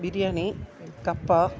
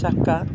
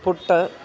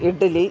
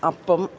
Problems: background sounds at intervals, background conversations at intervals